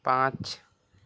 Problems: constant background noise